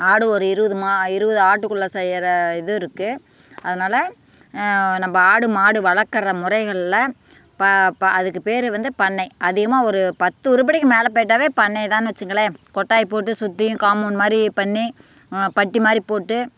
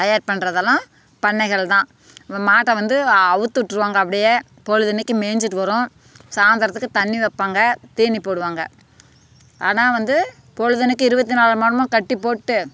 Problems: background sounds at intervals